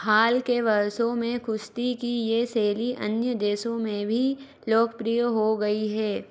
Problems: none marked